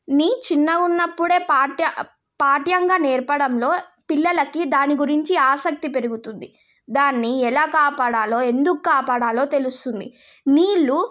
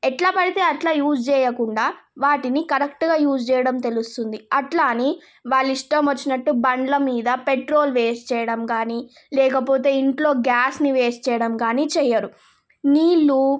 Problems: none marked